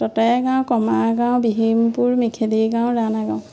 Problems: constant background noise